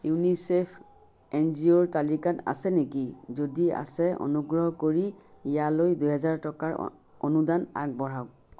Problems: none marked